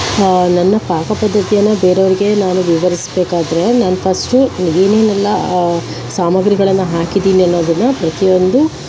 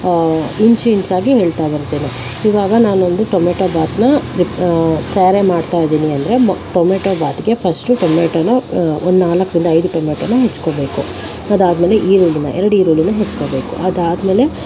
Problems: constant background noise